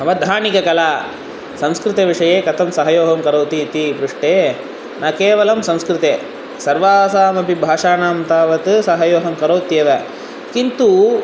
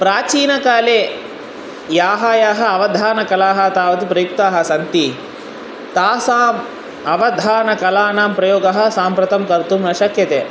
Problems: constant background noise